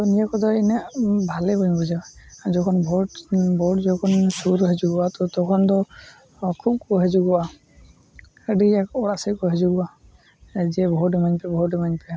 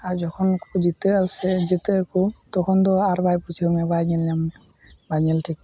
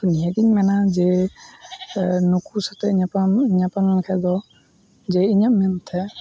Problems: none marked